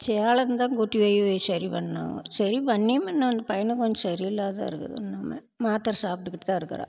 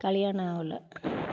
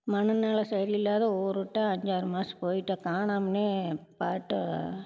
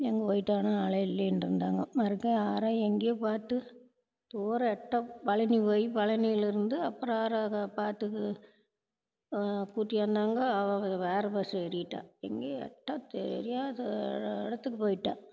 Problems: background sounds at intervals